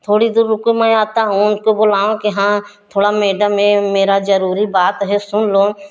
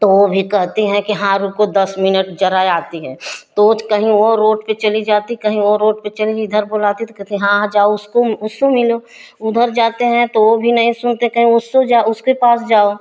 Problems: none marked